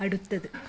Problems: background sounds at intervals